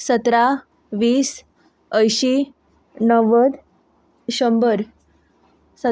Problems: constant background noise